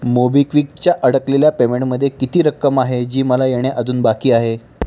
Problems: background sounds at intervals